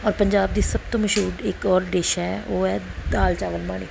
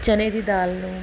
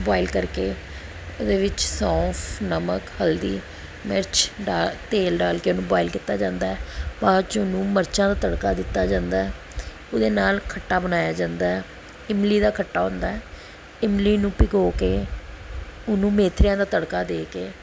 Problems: none marked